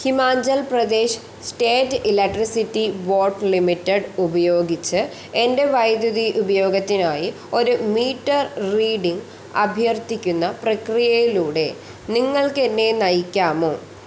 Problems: constant background noise